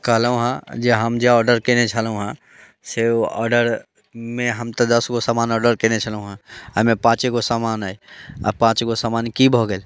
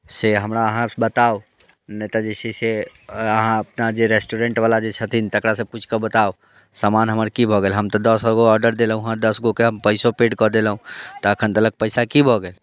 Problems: none marked